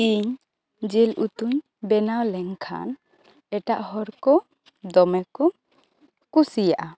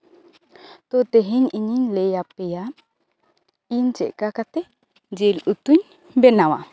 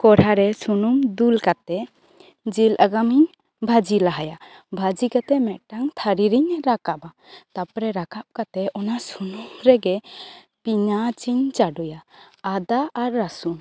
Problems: constant background noise, background conversations at intervals